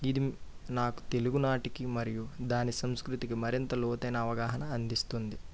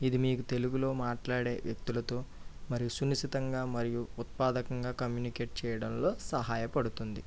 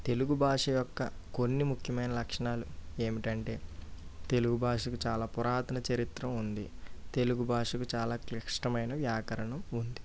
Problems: low volume